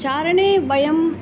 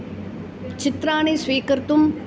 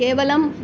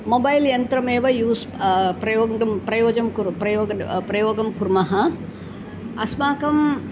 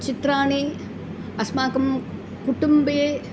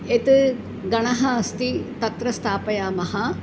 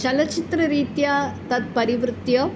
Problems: none marked